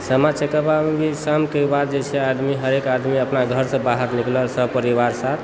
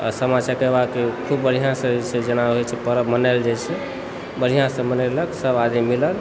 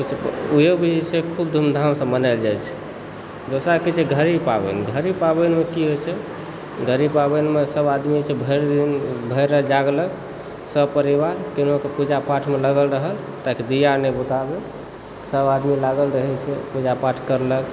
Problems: constant background noise, background conversations at intervals